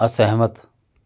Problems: none marked